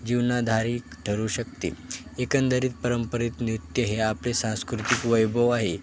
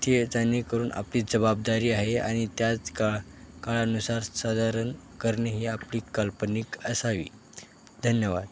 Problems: constant background noise, background conversations at intervals